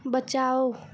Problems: constant background noise